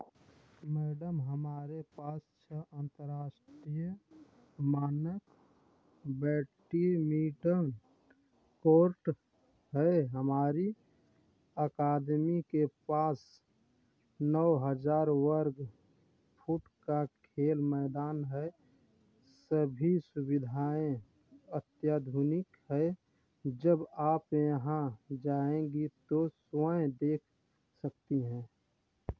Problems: none marked